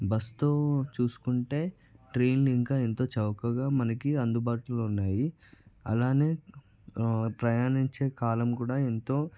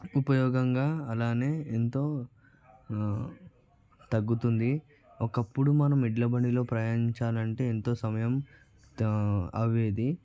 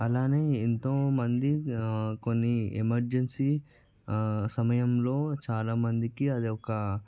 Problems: background conversations at intervals